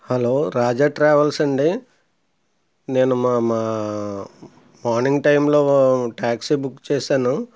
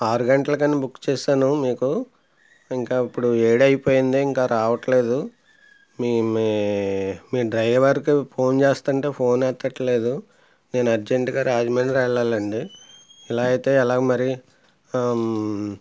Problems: background sounds at intervals